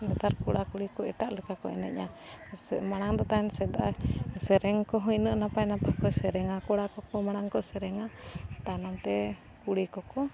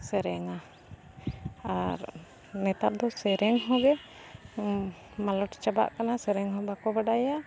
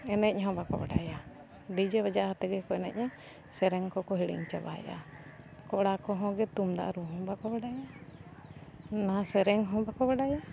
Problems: background sounds at intervals